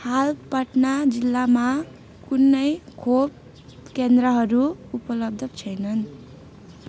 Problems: continuous background conversations